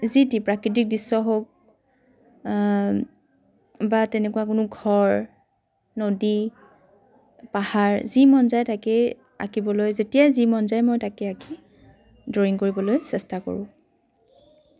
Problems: constant background noise, background conversations at intervals